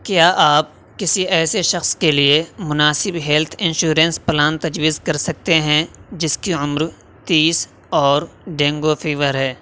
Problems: constant background noise